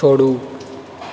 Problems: constant background noise